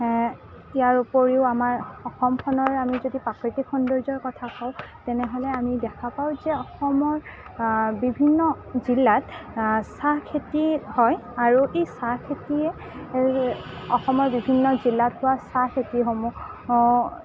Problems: none marked